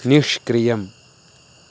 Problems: constant background noise